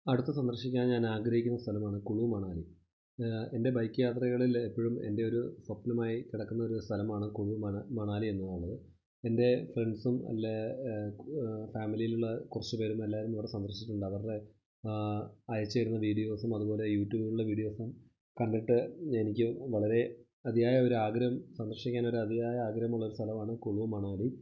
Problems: low volume